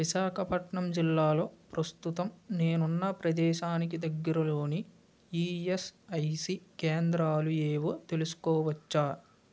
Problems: constant background noise